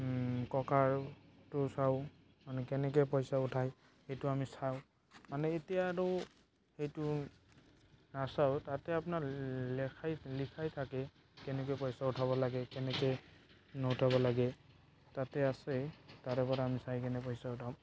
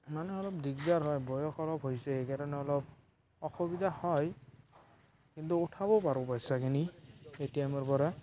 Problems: background sounds at intervals, background conversations at intervals